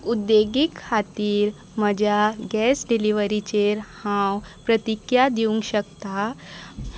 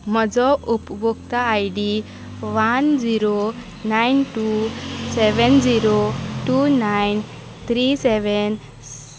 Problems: constant background noise